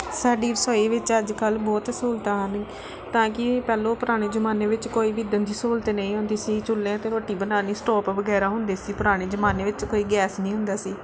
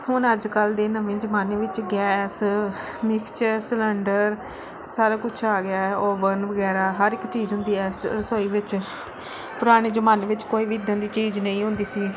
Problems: background sounds at intervals